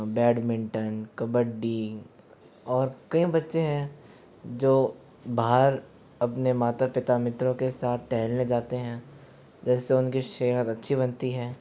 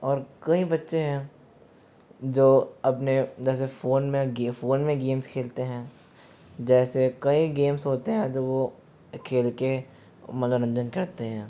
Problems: constant background noise